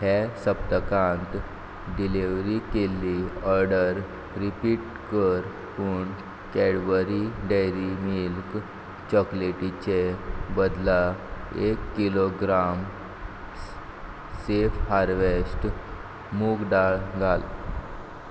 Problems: none marked